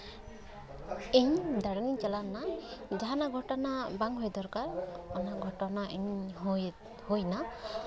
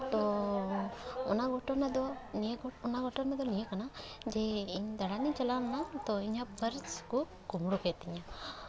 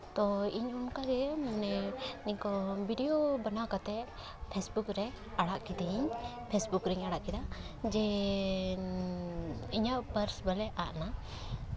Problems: none marked